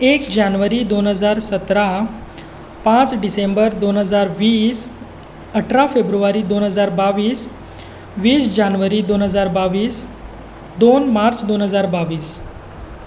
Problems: constant background noise